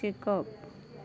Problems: background sounds at intervals